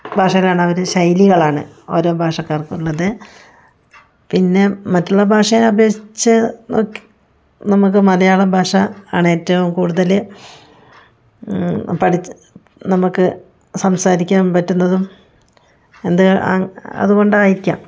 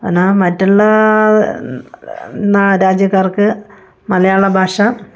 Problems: none marked